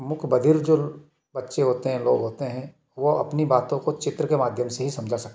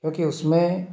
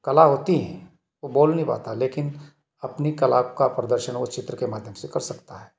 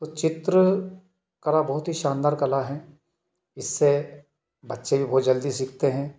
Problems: background sounds at intervals, echo